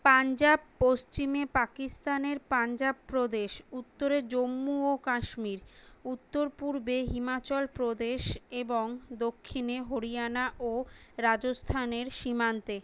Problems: none marked